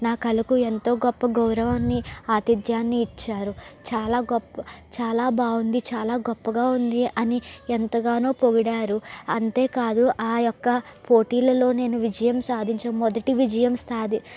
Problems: constant background noise